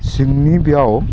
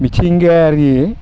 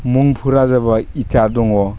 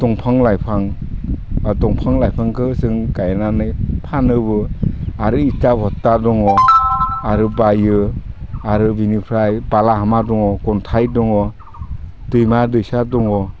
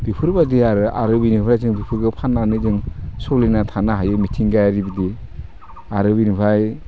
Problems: low volume